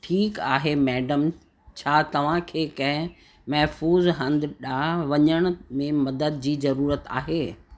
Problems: constant background noise, echo